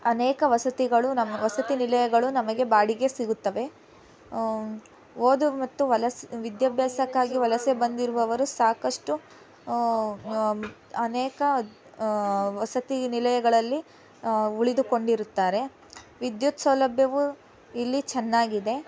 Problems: background conversations at intervals